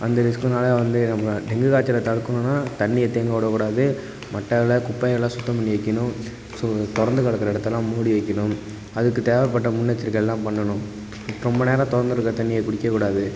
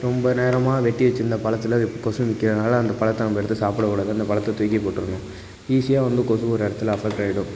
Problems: constant background noise